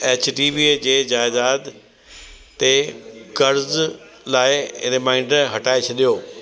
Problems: constant background noise, echo